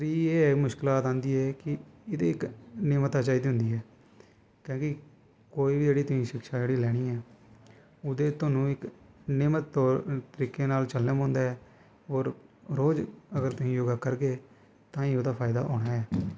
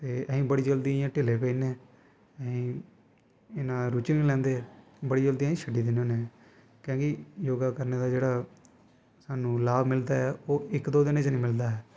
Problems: constant background noise